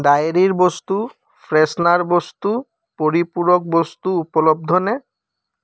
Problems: none marked